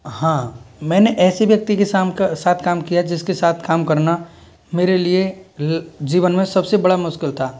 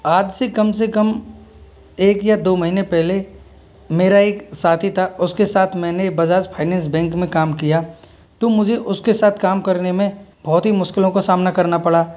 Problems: none marked